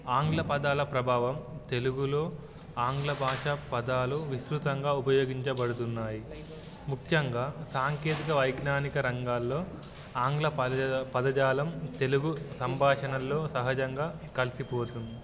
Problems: background sounds at intervals